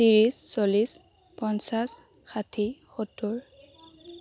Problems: constant background noise, background conversations at intervals